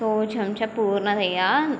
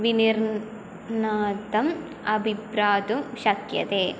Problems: none marked